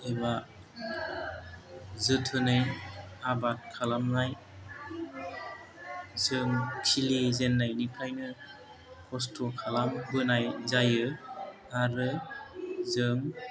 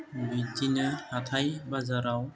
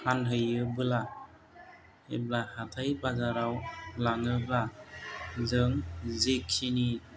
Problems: low volume